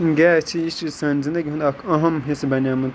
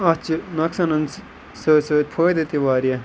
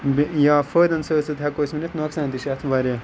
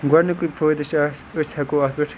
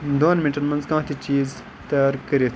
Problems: background sounds at intervals